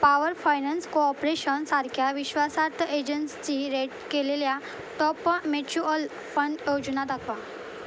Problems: constant background noise